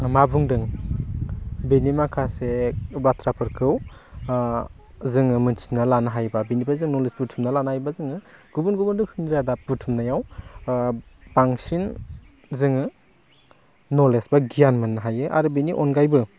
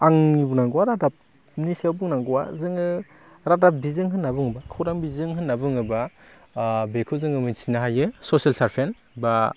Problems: low volume